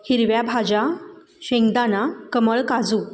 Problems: background sounds at intervals